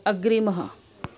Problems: none marked